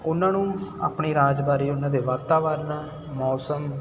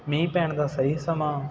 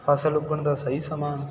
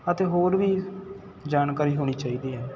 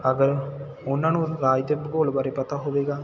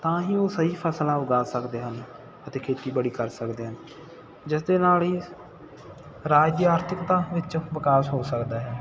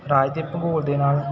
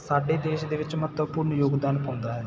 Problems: constant background noise